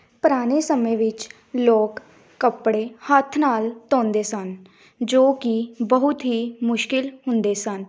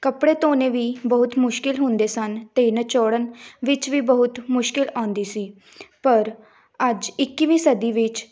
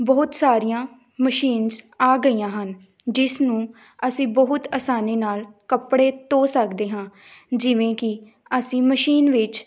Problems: background sounds at intervals